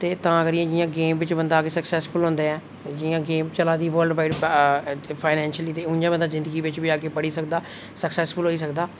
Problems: none marked